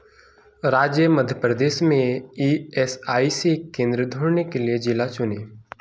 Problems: background sounds at intervals